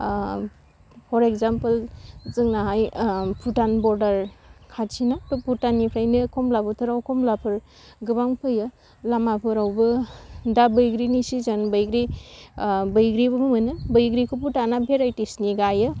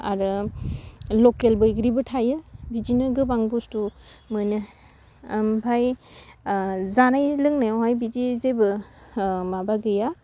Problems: low volume